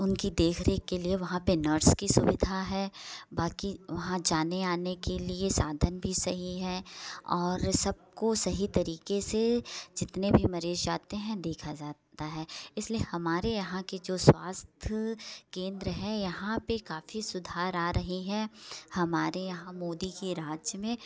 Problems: none marked